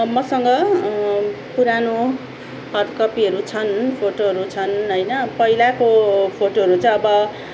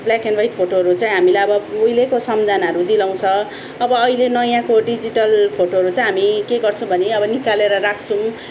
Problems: background sounds at intervals